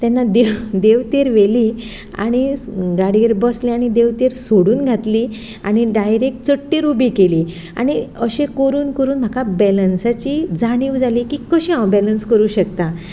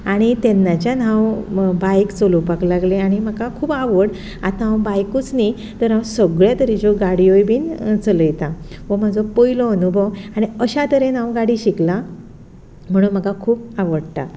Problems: background sounds at intervals